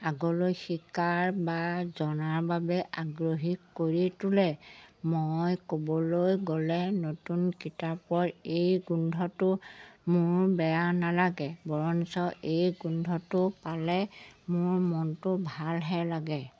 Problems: background sounds at intervals